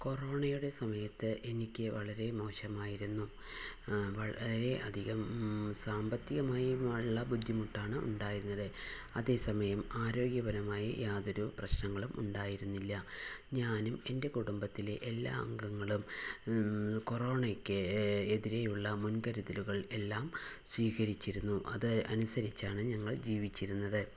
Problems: constant background noise, low volume